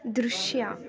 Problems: none marked